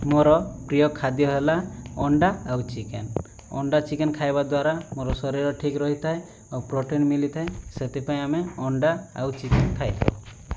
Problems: background sounds at intervals